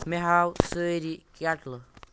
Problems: none marked